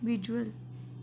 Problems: none marked